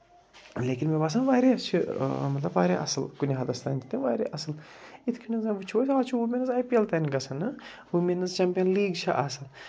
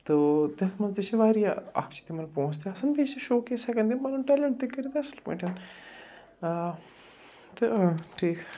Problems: none marked